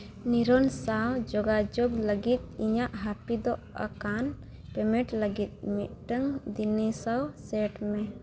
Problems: background sounds at intervals